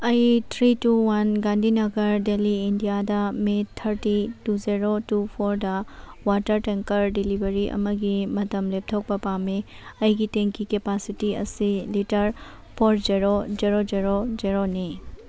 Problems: background sounds at intervals